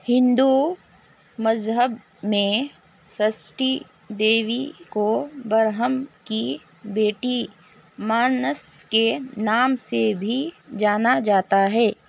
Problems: constant background noise, low volume